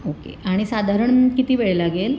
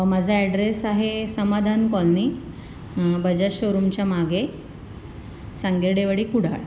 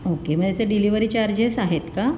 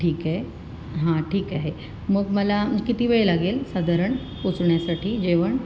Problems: constant background noise